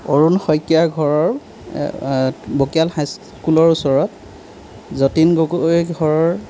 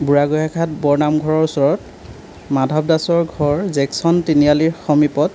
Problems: background sounds at intervals